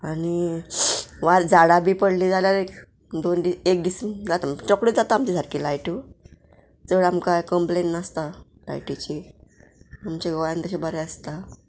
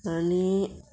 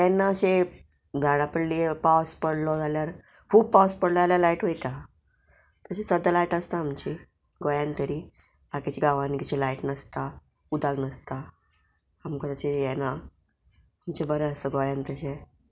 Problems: none marked